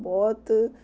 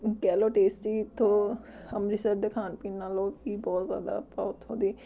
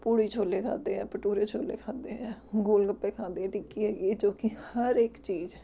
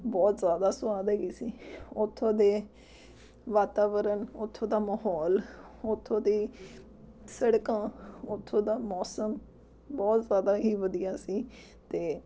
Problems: none marked